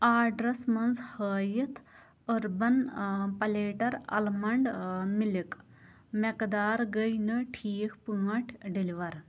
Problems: none marked